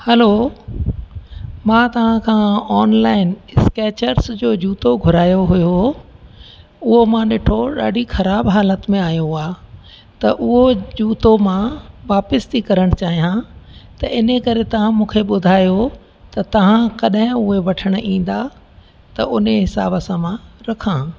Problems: constant background noise